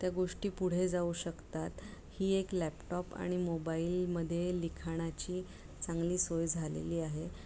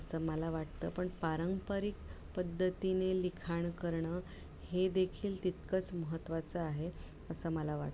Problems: low volume